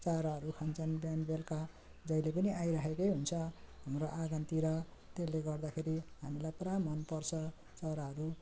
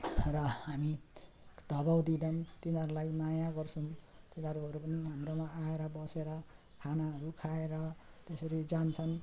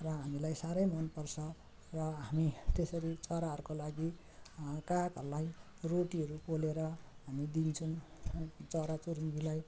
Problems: none marked